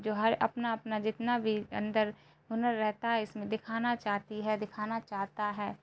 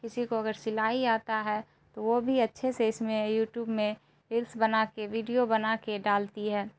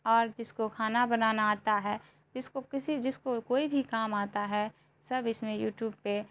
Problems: constant background noise